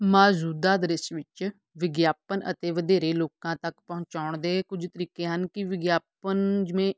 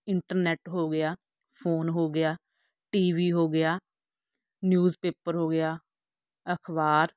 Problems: none marked